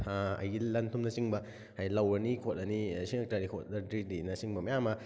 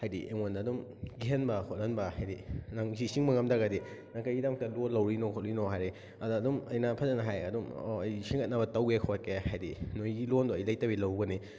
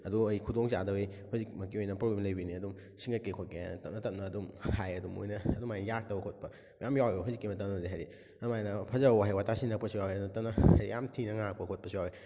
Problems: background sounds at intervals